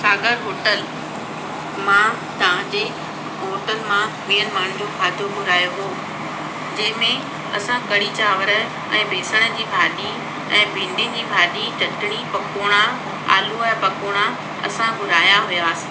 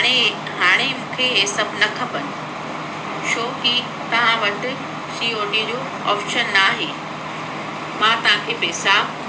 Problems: constant background noise